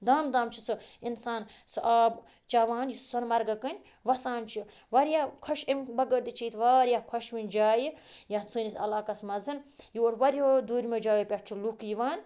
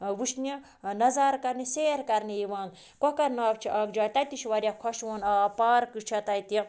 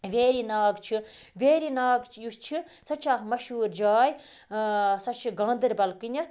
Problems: background sounds at intervals